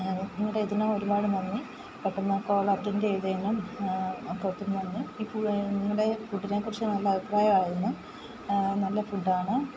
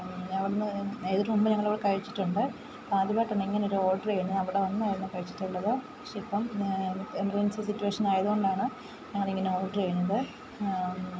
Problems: constant background noise, low volume